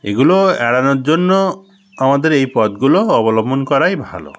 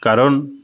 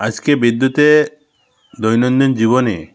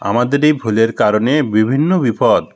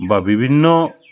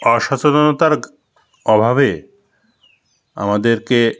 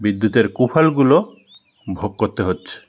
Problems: constant background noise, background conversations at intervals